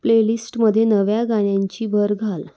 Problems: constant background noise